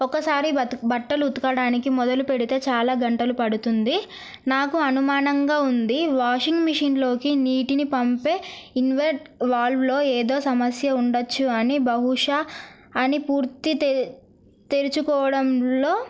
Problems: none marked